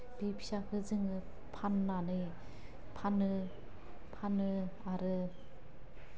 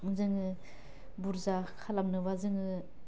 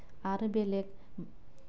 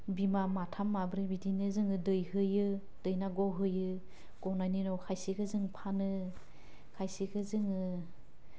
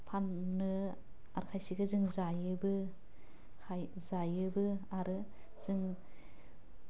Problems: none marked